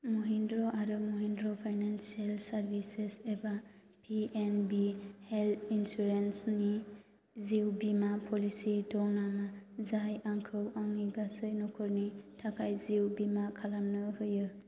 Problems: constant background noise